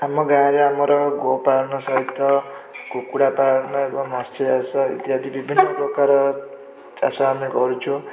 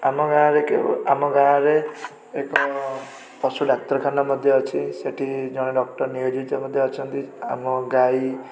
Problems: constant background noise